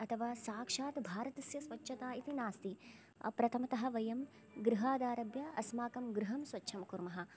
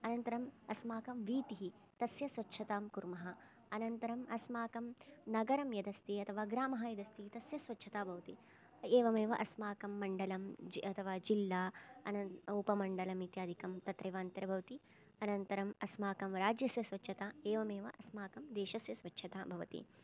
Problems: low volume